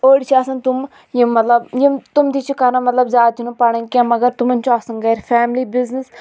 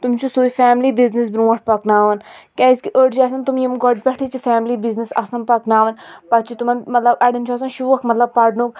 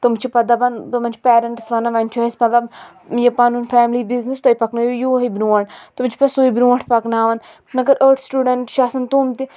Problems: none marked